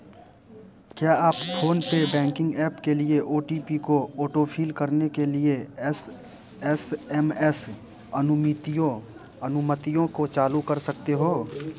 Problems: constant background noise